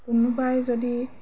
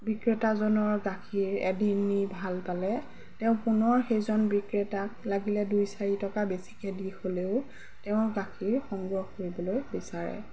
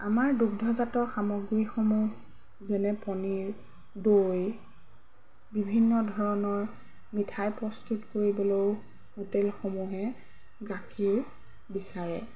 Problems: background sounds at intervals